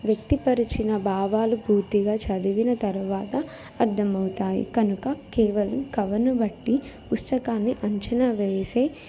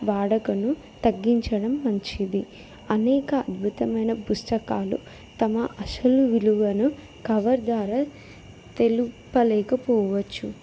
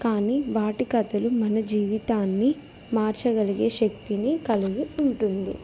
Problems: background conversations at intervals